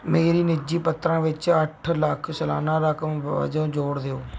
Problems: background sounds at intervals